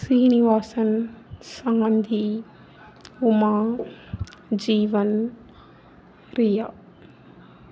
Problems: none marked